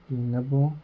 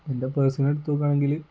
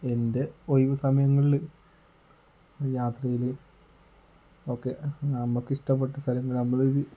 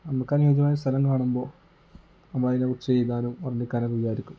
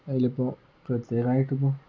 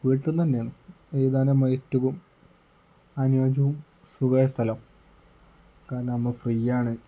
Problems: low volume